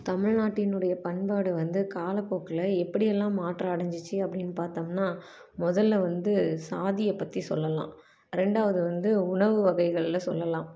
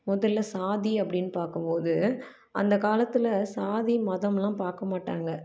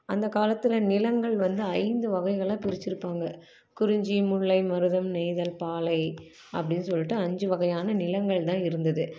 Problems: none marked